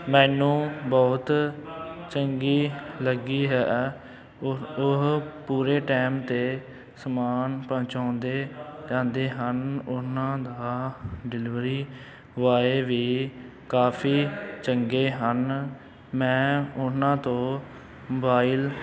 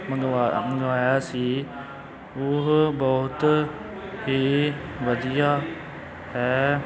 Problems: constant background noise, continuous background conversations